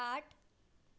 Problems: none marked